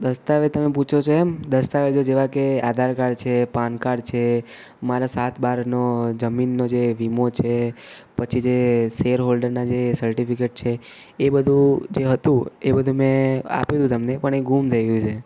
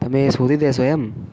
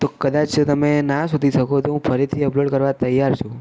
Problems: none marked